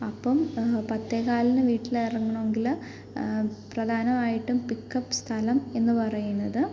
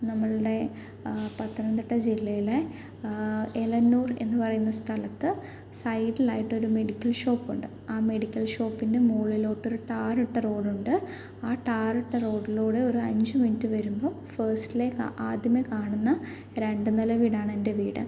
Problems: background sounds at intervals, low volume